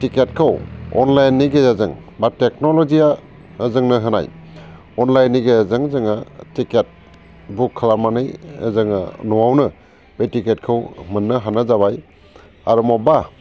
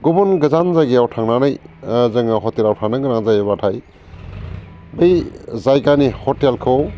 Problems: constant background noise